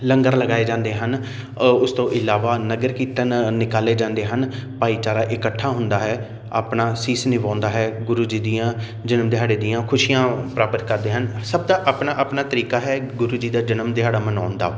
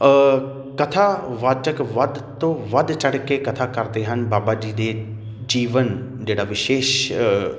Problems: none marked